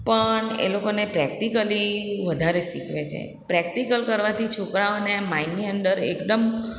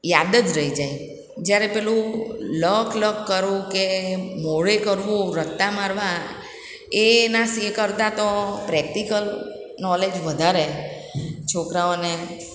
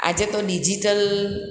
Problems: background sounds at intervals, echo